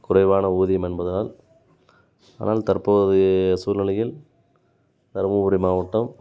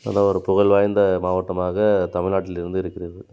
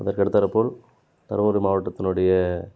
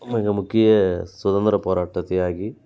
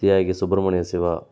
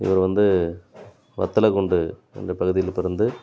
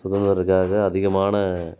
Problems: constant background noise